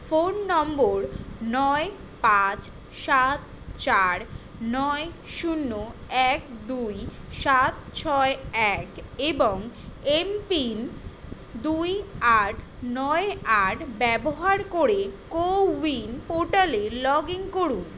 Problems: constant background noise